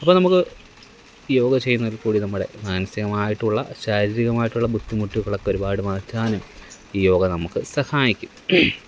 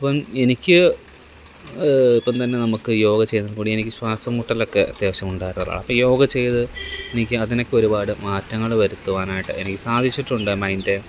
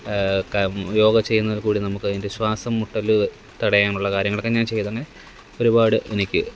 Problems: none marked